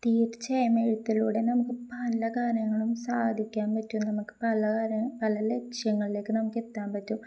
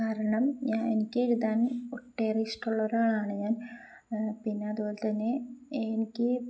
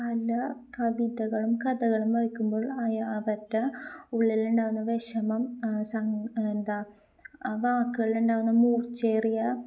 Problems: none marked